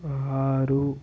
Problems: constant background noise